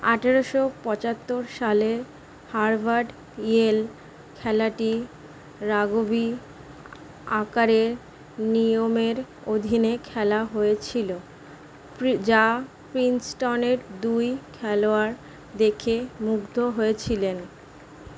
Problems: constant background noise